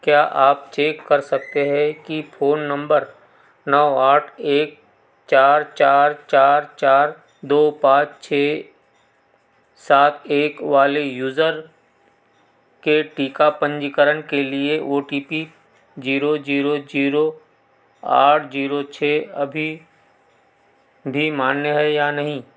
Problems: none marked